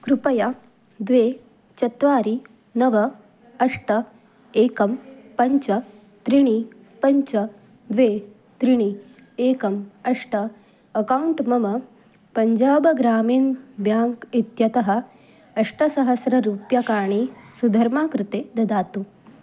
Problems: none marked